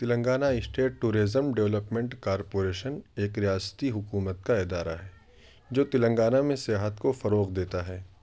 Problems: constant background noise